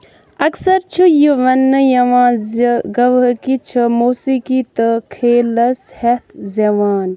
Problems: background sounds at intervals